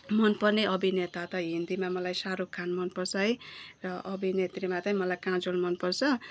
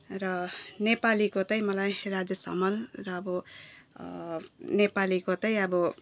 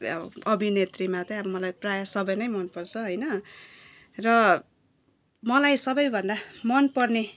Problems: none marked